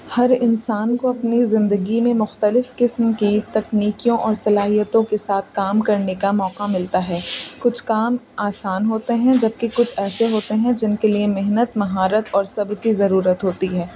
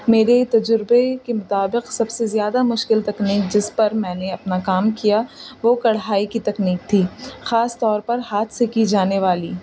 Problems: constant background noise